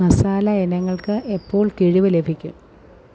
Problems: low volume